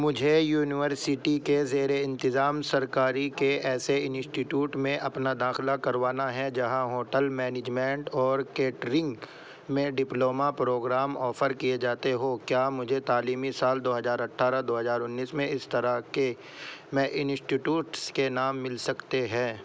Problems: constant background noise